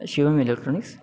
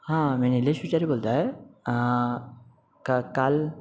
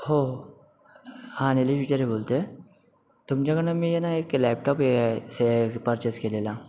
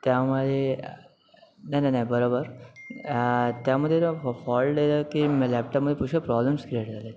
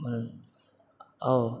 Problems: none marked